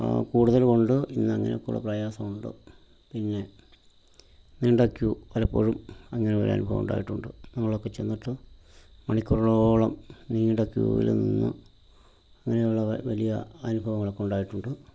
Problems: background sounds at intervals